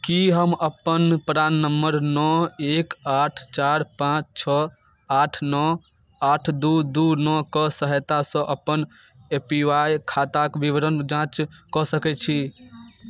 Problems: none marked